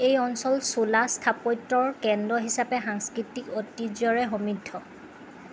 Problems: constant background noise